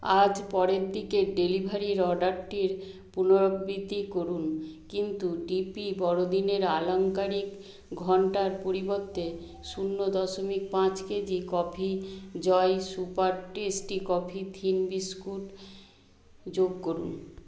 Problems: none marked